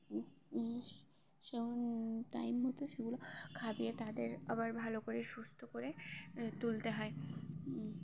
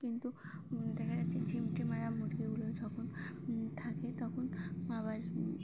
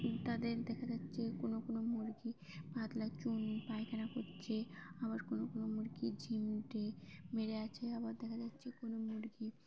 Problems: background sounds at intervals, background conversations at intervals